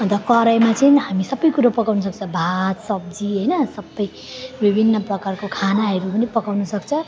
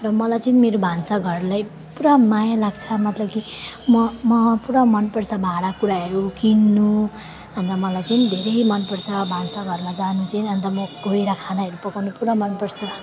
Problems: constant background noise, continuous background conversations